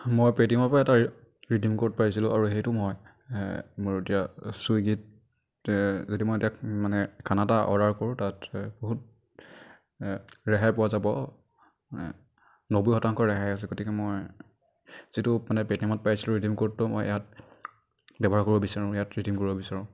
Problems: none marked